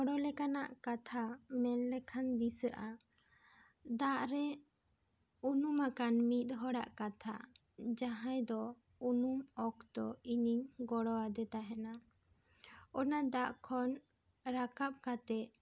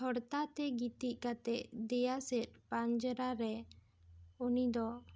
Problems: none marked